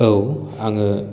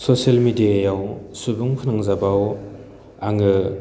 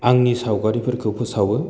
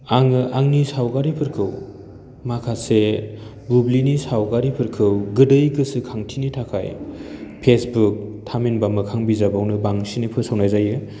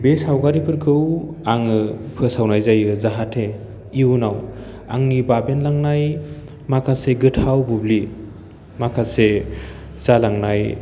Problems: none marked